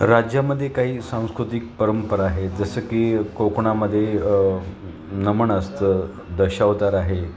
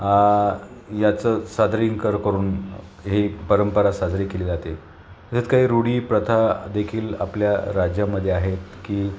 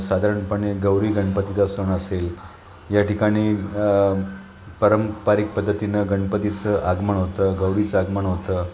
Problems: constant background noise, continuous background conversations